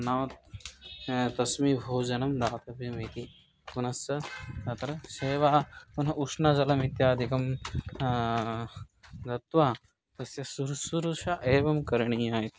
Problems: constant background noise, background conversations at intervals